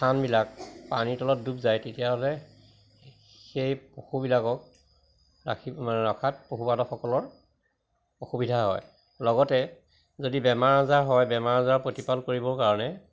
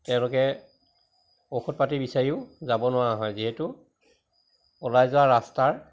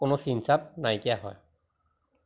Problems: constant background noise